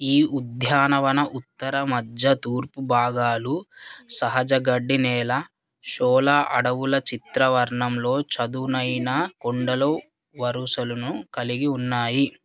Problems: none marked